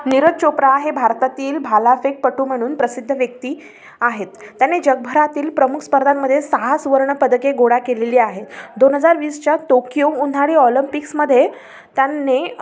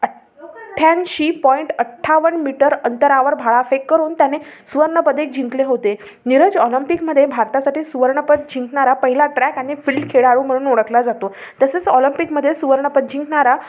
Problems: none marked